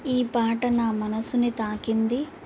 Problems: constant background noise